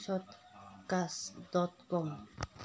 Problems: low volume